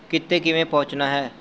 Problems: constant background noise